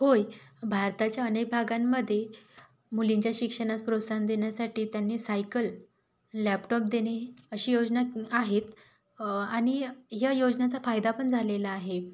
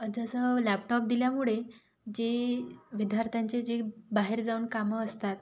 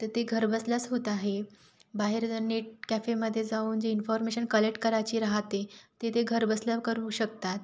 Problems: background sounds at intervals